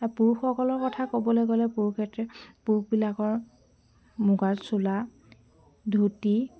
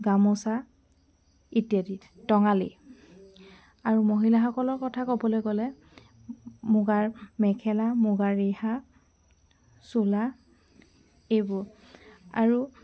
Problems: constant background noise